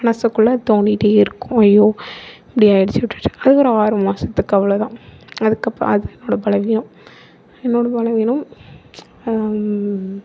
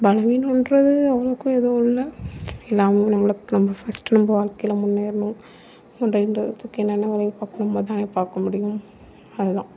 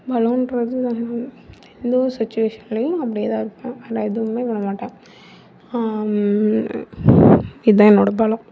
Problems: background sounds at intervals